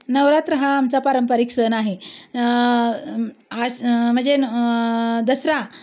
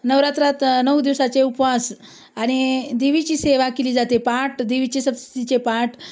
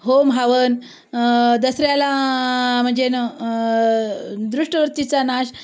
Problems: constant background noise